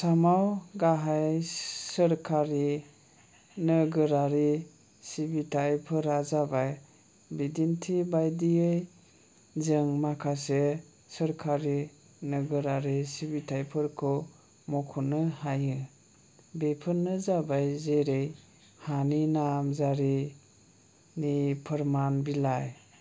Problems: low volume